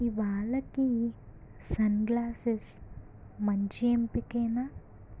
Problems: low volume